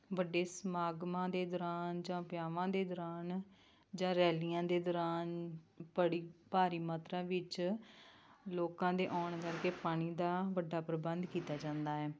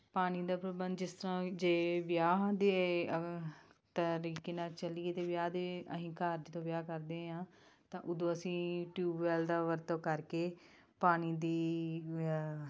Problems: background conversations at intervals